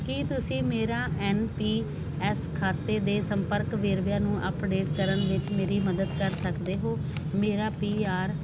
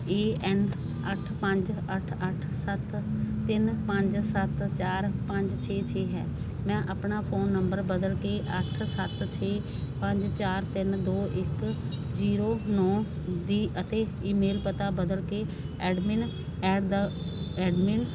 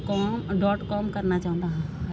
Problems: constant background noise